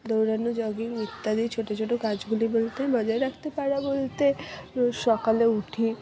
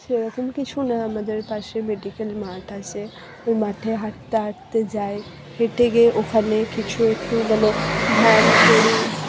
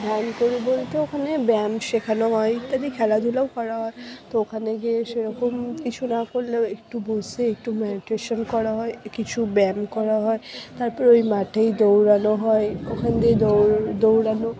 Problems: background sounds at intervals, background conversations at intervals, low volume